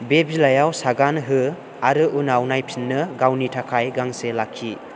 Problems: constant background noise